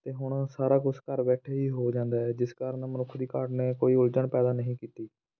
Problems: background sounds at intervals